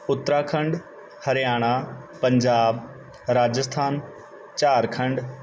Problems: background sounds at intervals